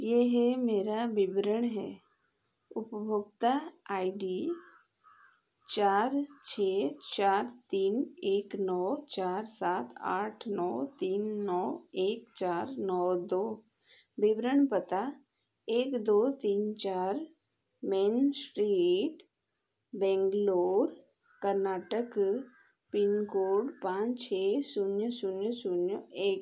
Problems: none marked